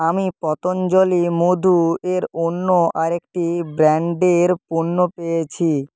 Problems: background conversations at intervals